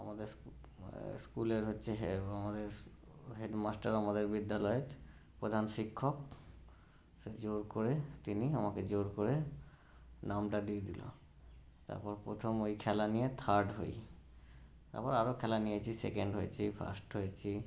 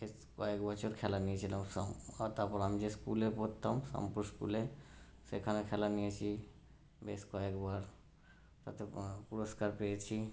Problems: background sounds at intervals